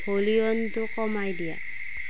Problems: constant background noise